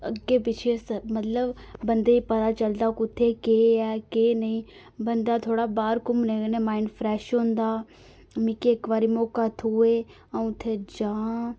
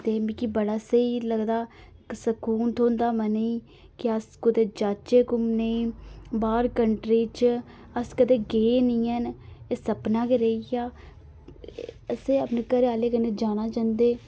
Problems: none marked